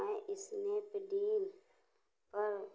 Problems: low volume